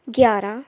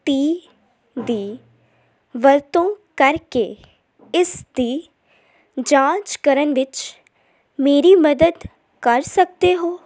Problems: none marked